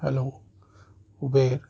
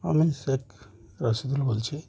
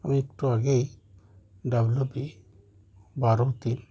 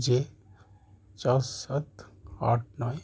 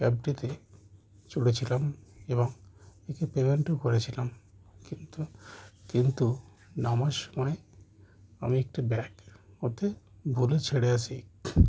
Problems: constant background noise